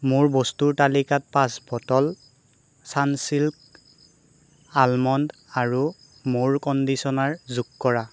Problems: none marked